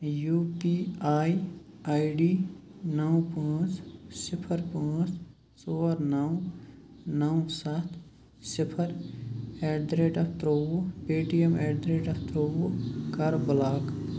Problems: constant background noise